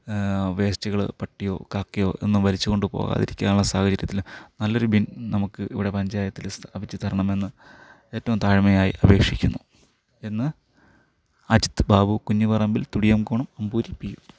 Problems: background sounds at intervals